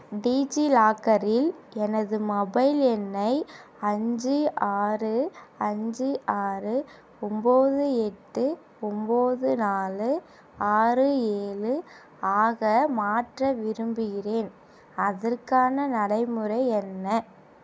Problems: none marked